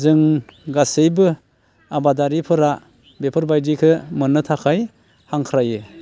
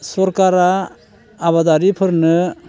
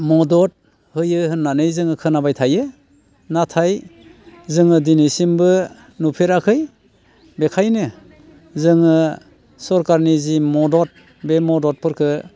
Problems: constant background noise